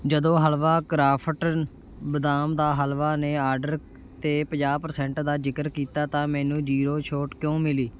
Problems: constant background noise